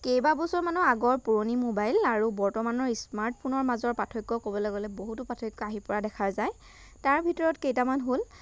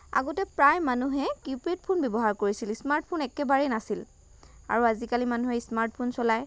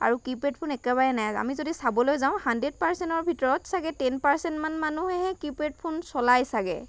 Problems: constant background noise